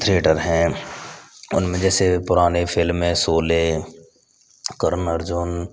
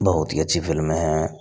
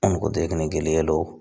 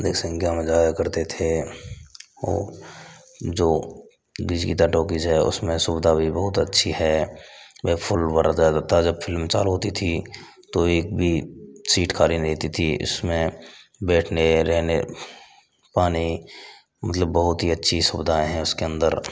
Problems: constant background noise